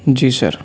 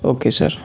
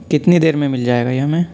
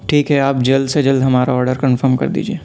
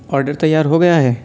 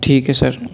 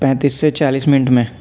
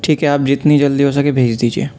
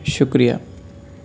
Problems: constant background noise